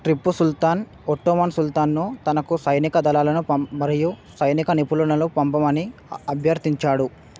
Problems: none marked